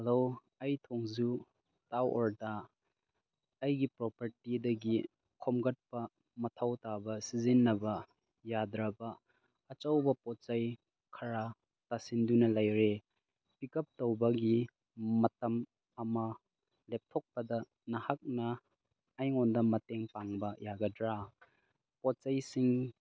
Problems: background sounds at intervals